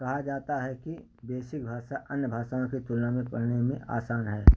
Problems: low volume